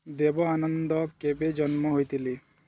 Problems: none marked